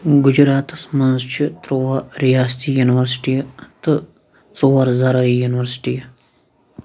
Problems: background sounds at intervals, background conversations at intervals